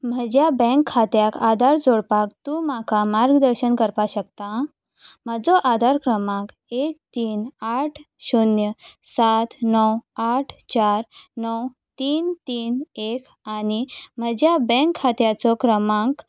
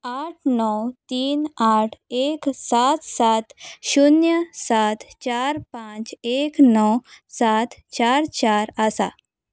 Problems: background sounds at intervals